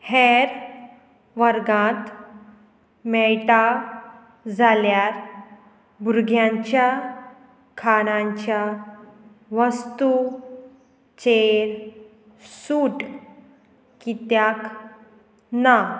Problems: none marked